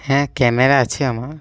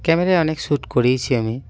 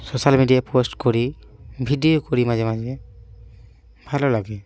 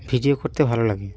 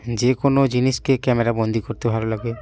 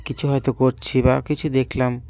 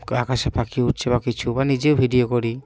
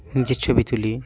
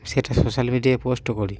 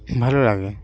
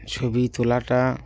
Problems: constant background noise